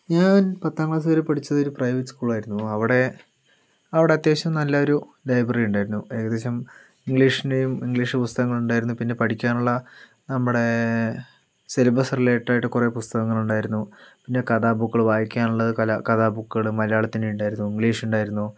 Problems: none marked